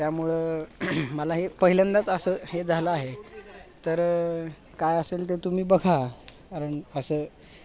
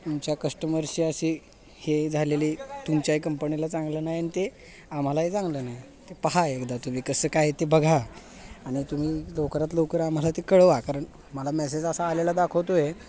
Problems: constant background noise, background conversations at intervals